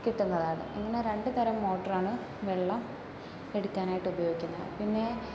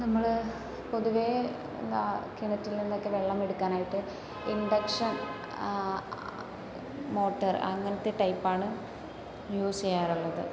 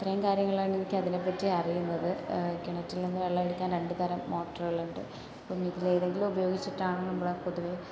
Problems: background sounds at intervals, low volume